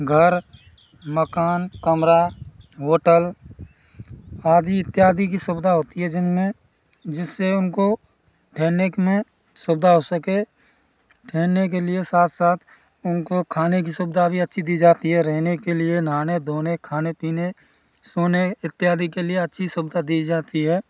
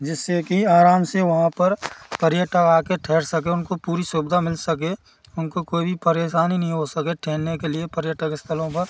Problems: none marked